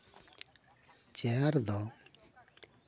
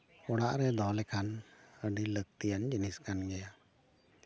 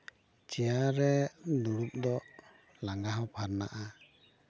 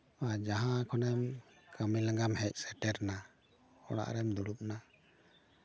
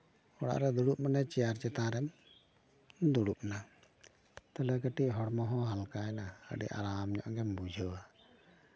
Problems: constant background noise